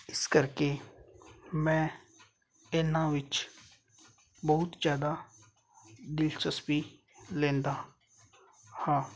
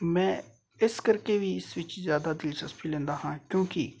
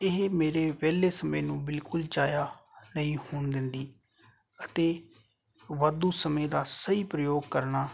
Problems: none marked